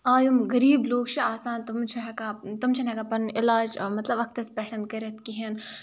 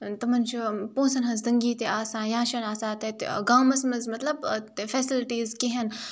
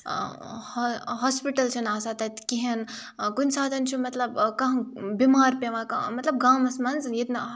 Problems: none marked